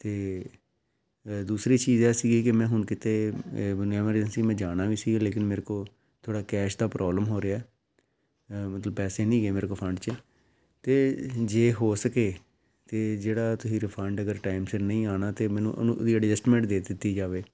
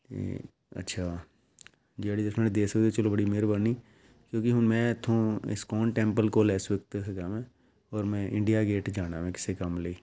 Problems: background sounds at intervals